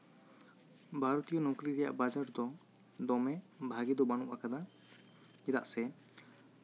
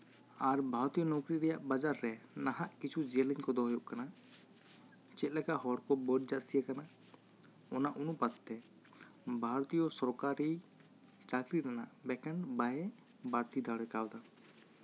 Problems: none marked